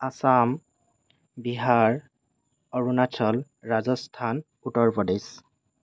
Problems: none marked